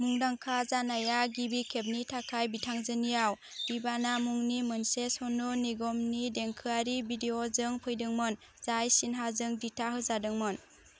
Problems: constant background noise